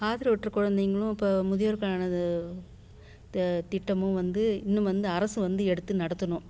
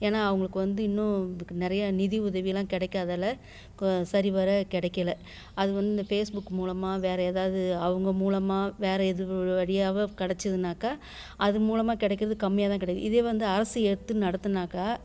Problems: none marked